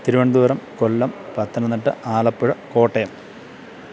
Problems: constant background noise